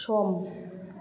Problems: none marked